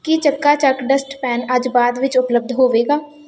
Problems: constant background noise